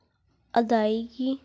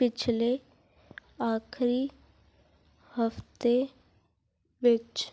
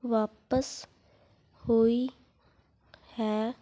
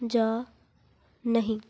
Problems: none marked